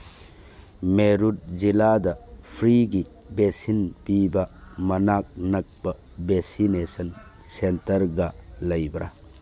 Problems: background sounds at intervals